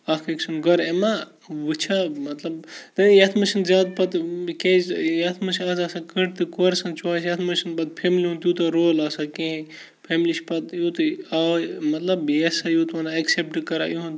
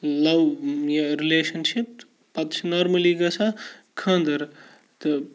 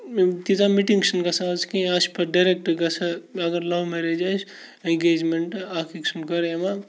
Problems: constant background noise, low volume